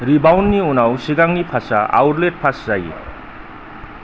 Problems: low volume